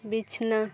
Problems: none marked